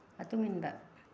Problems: none marked